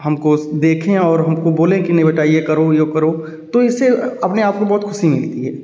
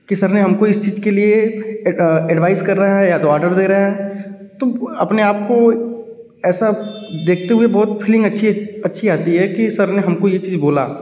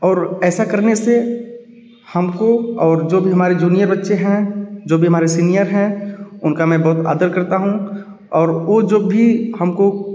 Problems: background sounds at intervals